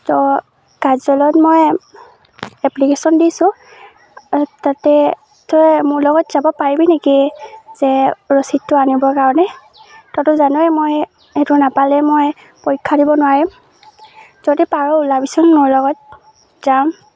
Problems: constant background noise